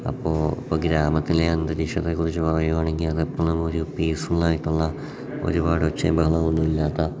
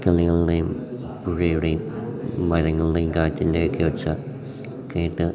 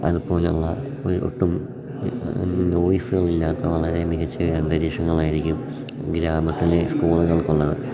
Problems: background sounds at intervals, low volume